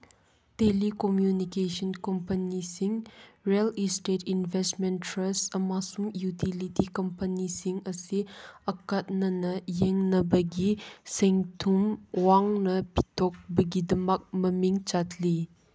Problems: background sounds at intervals